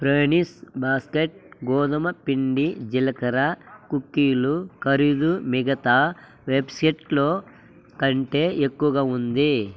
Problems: constant background noise, background conversations at intervals